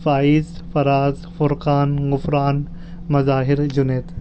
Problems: none marked